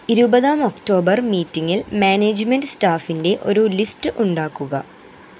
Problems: constant background noise